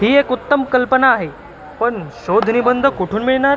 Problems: constant background noise, background conversations at intervals